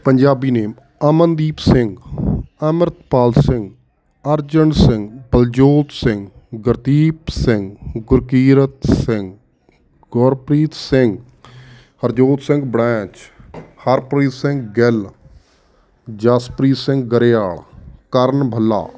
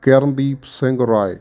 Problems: none marked